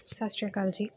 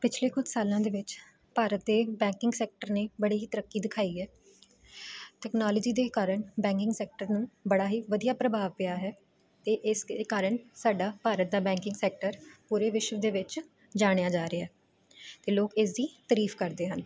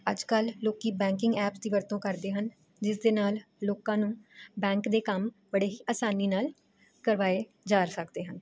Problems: constant background noise